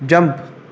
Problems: constant background noise